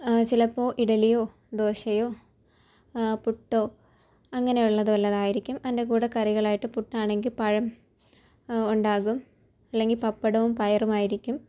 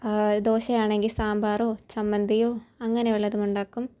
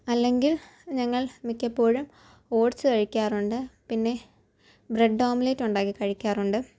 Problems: low volume